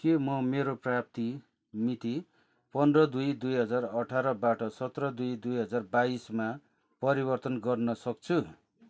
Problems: constant background noise